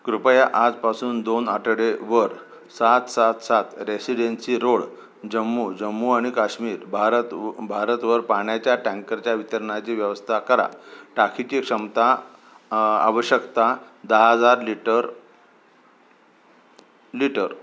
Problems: none marked